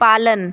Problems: constant background noise